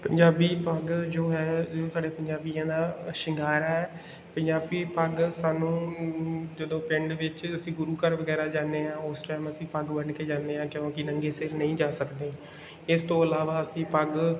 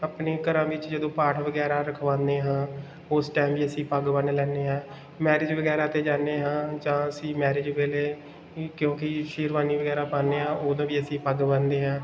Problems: background sounds at intervals